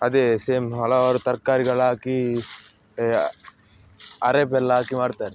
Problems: background sounds at intervals